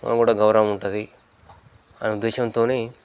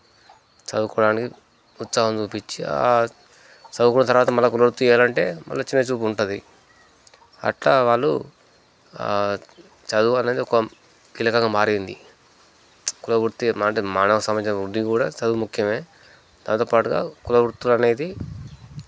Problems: constant background noise